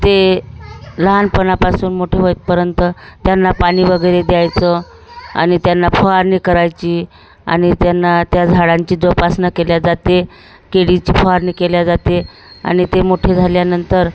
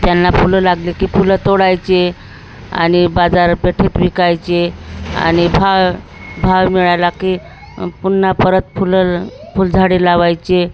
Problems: none marked